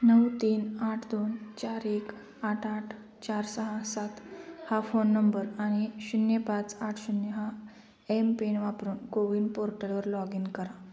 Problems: constant background noise, background conversations at intervals